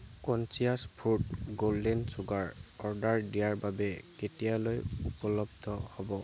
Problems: none marked